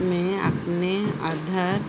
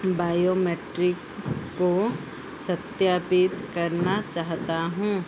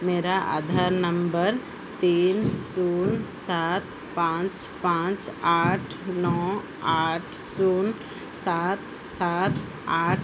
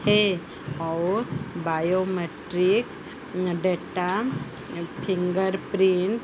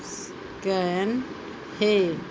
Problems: constant background noise